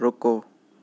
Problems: none marked